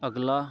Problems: background sounds at intervals